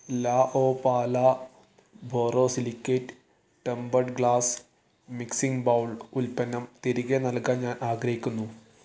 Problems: none marked